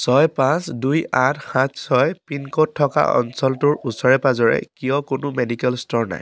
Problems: background sounds at intervals